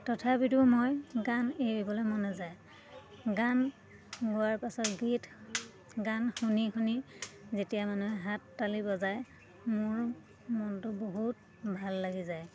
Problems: constant background noise, continuous background conversations